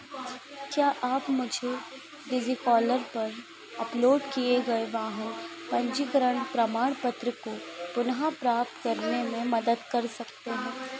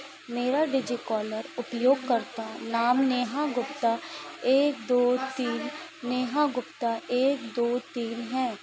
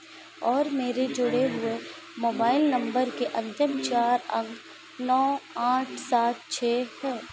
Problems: constant background noise